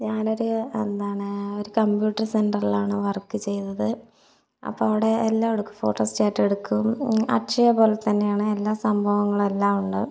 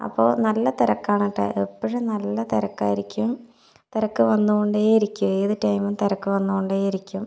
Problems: none marked